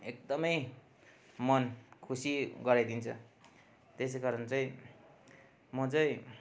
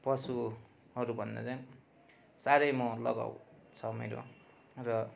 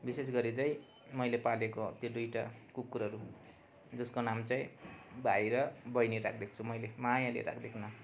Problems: constant background noise